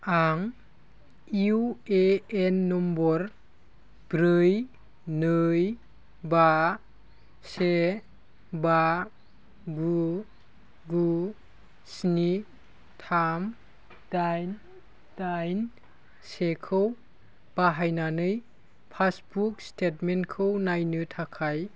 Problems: constant background noise